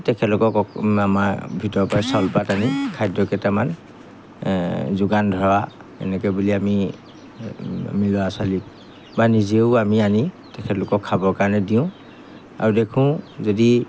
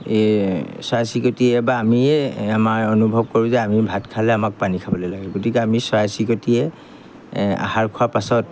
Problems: background sounds at intervals